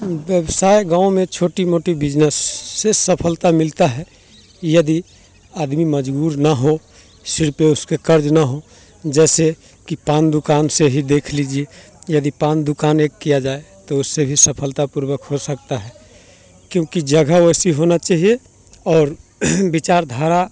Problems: background sounds at intervals